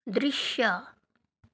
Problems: none marked